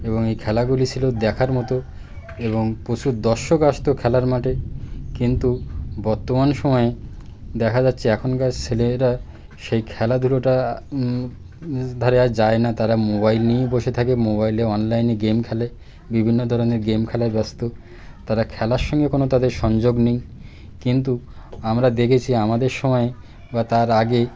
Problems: none marked